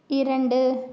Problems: none marked